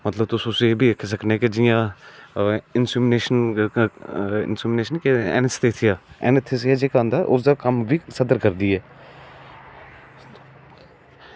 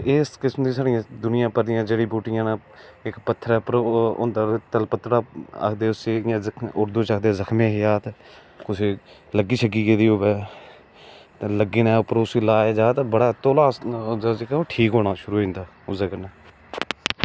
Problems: none marked